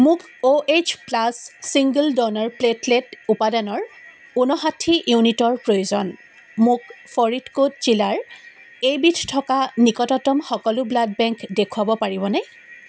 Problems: constant background noise